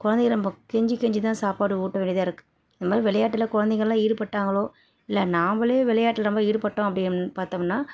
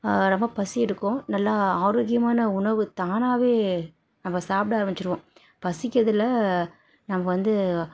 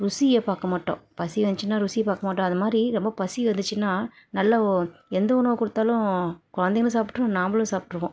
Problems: none marked